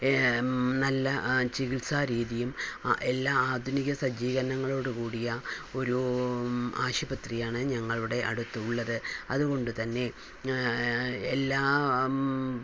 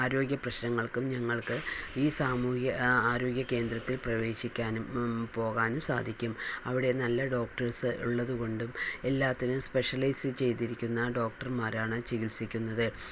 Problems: constant background noise, low volume